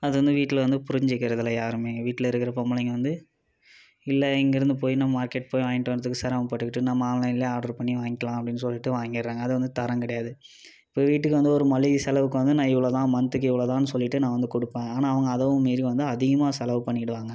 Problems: continuous background conversations